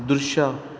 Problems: background sounds at intervals